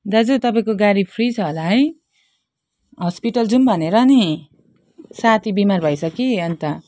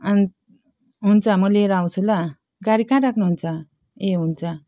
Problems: none marked